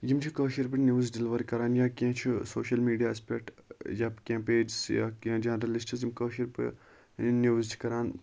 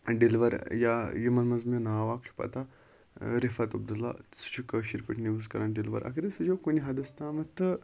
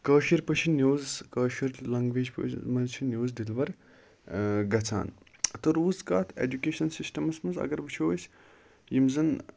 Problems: constant background noise